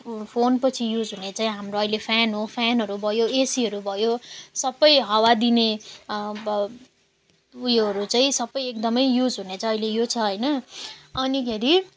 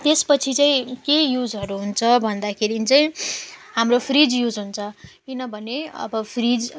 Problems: none marked